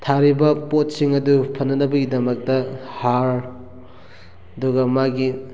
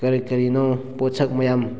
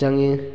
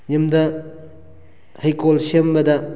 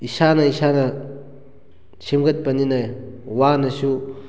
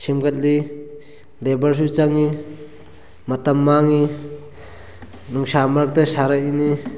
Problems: background sounds at intervals, background conversations at intervals